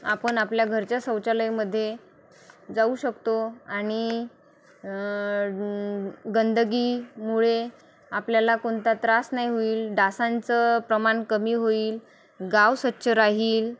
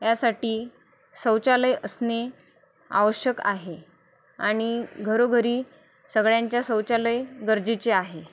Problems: none marked